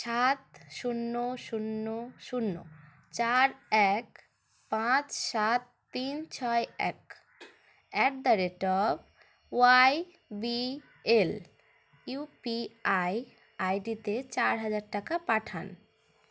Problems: constant background noise